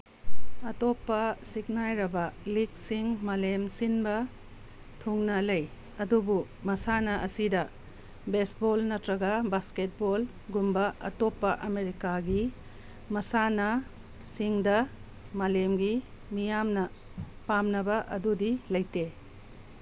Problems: constant background noise